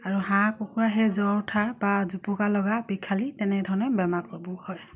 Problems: none marked